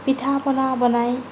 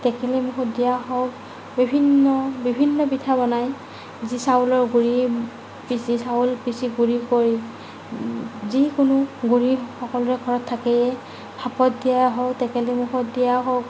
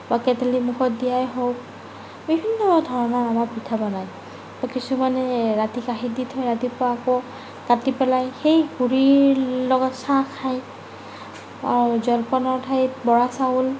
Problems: none marked